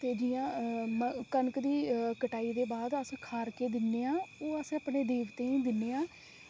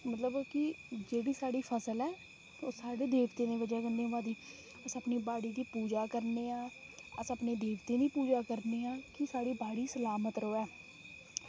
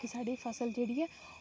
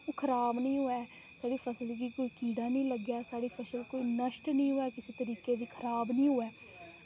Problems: low volume